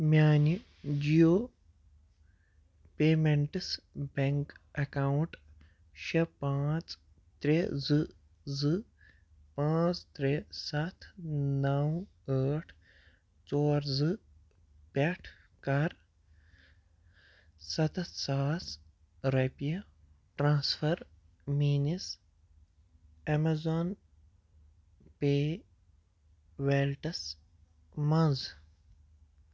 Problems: none marked